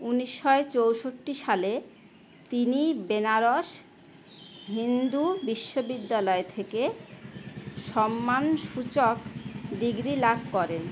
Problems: none marked